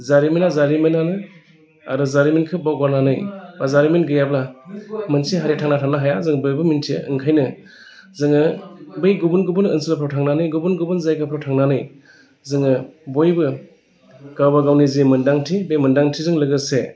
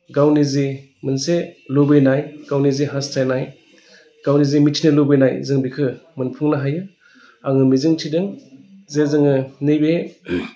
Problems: none marked